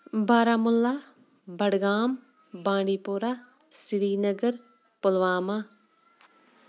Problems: background sounds at intervals, background conversations at intervals